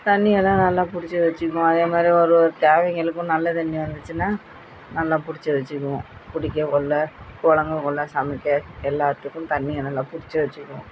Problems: constant background noise